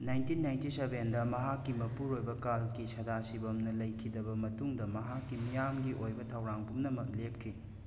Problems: constant background noise